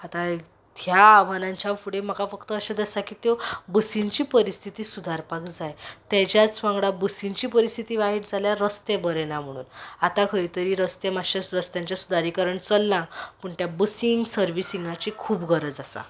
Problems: background sounds at intervals